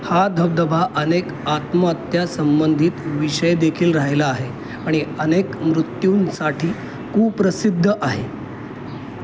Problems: constant background noise